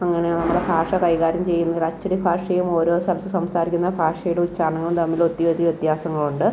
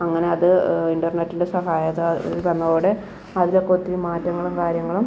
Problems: background sounds at intervals